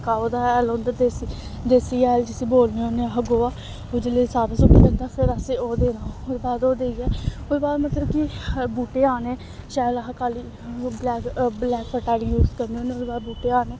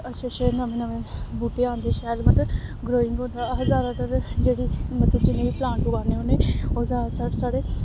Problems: constant background noise